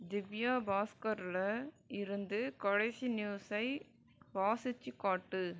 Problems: low volume